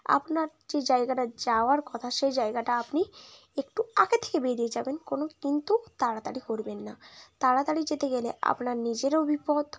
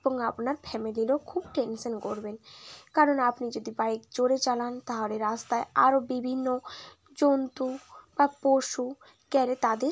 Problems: constant background noise, continuous background conversations